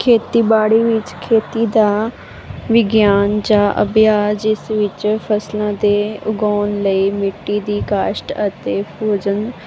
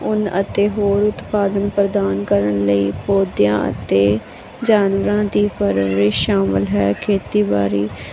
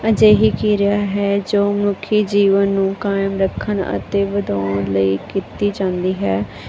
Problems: none marked